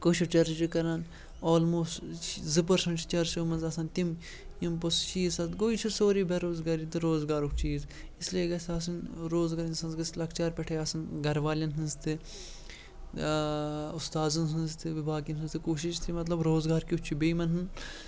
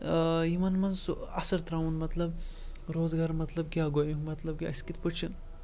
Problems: background sounds at intervals, background conversations at intervals